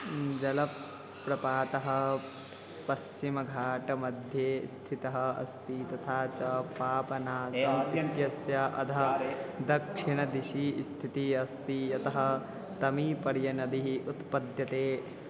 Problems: constant background noise